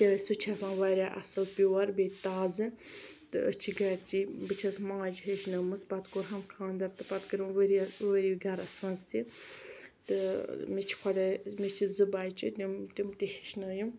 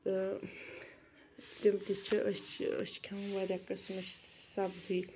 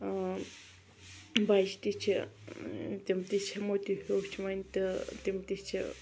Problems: background sounds at intervals